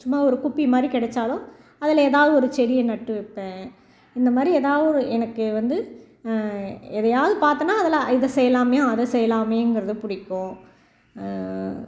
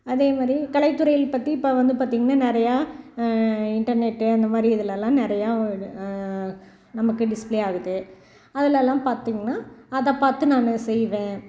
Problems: background sounds at intervals